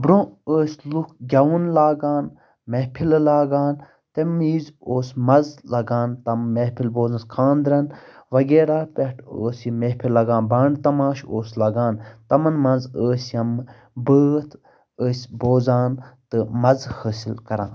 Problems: constant background noise